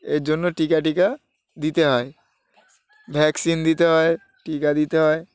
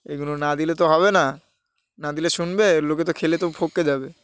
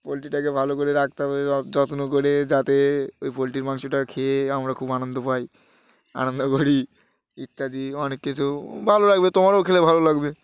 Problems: background sounds at intervals, background conversations at intervals